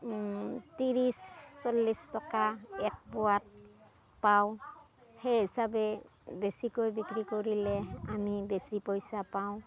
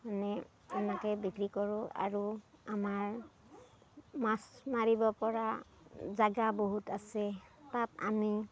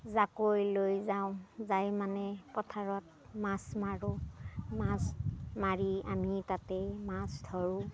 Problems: none marked